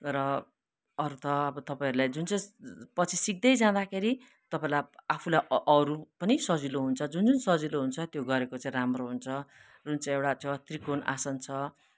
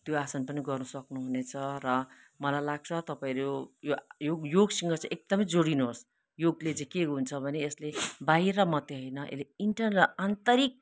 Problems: none marked